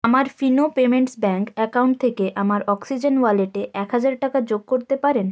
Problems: none marked